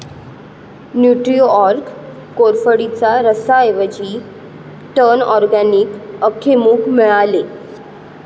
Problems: background sounds at intervals